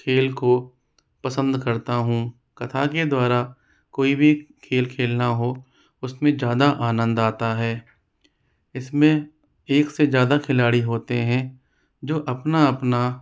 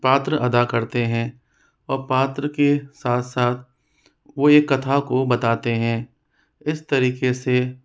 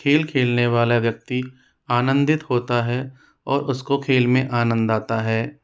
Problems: constant background noise